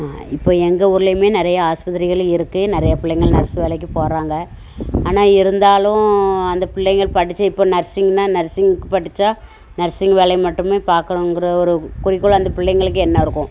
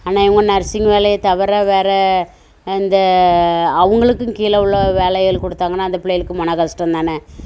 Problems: constant background noise